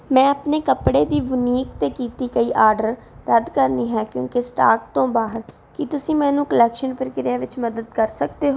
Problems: background sounds at intervals